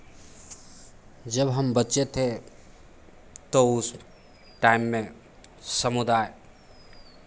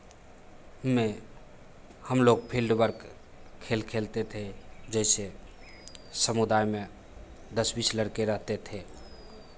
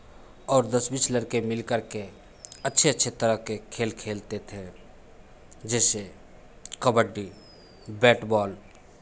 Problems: constant background noise, background conversations at intervals